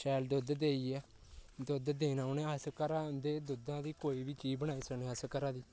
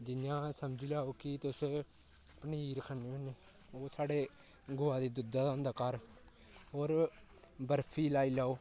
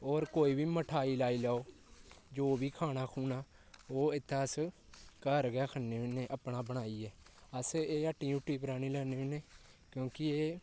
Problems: constant background noise, low volume